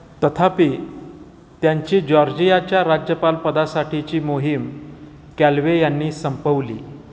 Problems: none marked